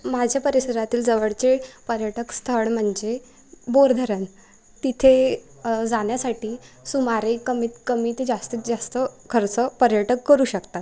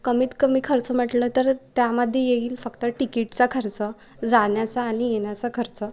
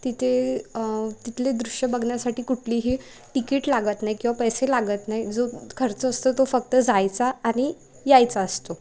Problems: none marked